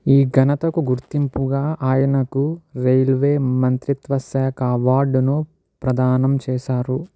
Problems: none marked